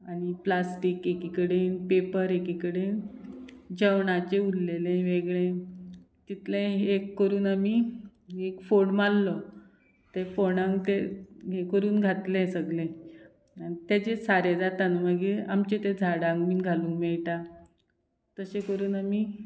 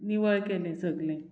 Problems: background sounds at intervals